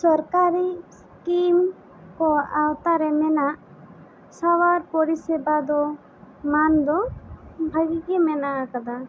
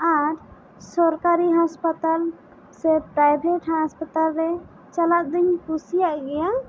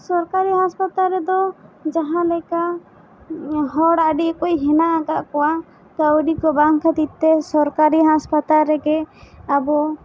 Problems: constant background noise